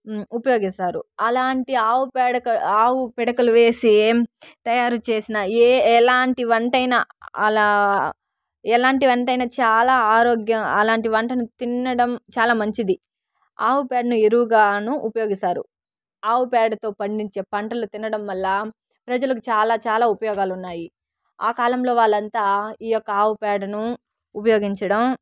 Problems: none marked